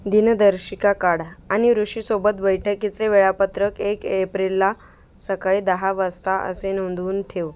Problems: background sounds at intervals